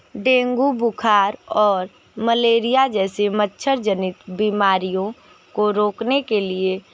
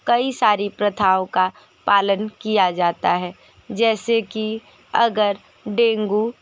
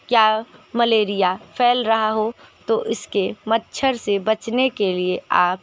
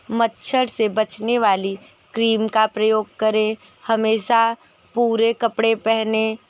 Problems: constant background noise